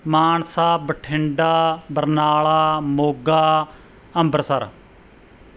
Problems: background sounds at intervals